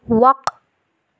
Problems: none marked